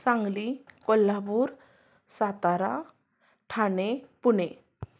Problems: none marked